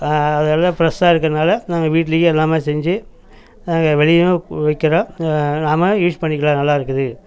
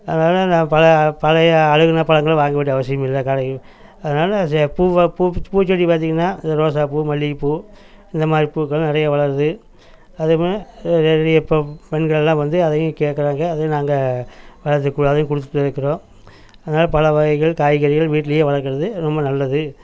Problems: background sounds at intervals